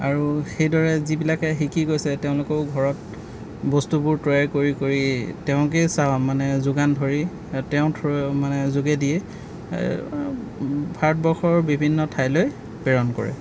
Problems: background sounds at intervals